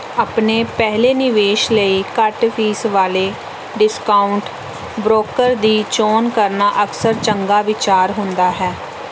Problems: background sounds at intervals